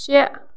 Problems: background sounds at intervals